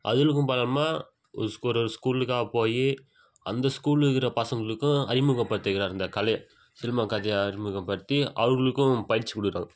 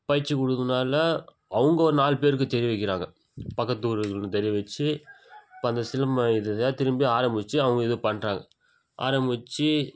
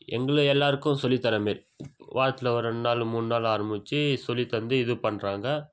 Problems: constant background noise